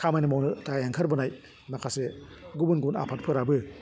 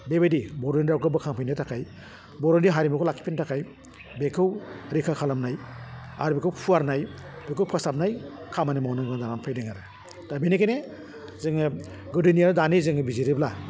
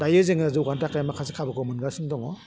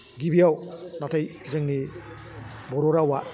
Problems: low volume